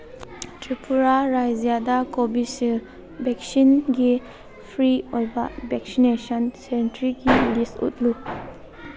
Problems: background conversations at intervals